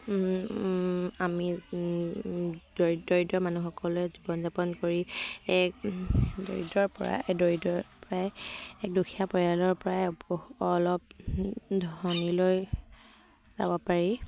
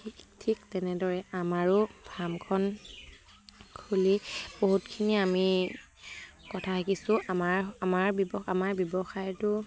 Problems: constant background noise